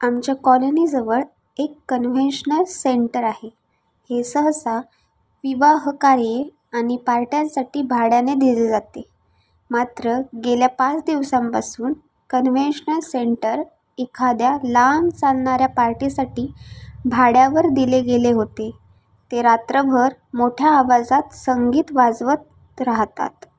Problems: none marked